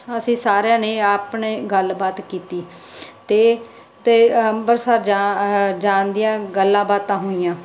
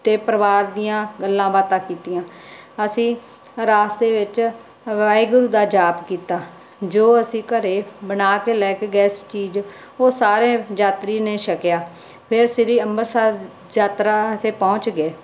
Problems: none marked